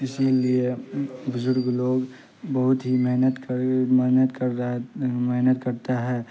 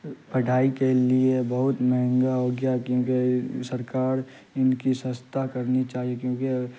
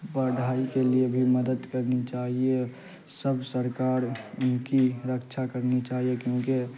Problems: constant background noise